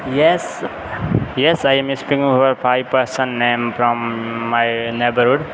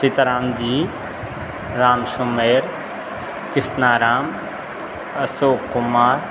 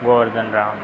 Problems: none marked